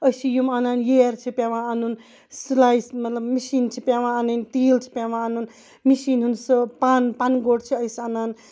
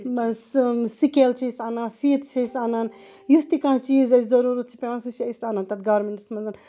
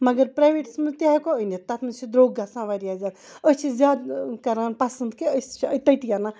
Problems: background sounds at intervals